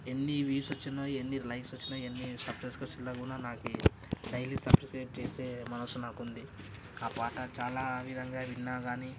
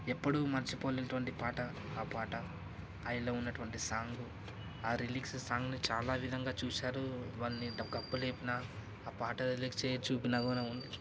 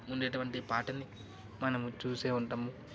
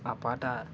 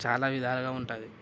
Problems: none marked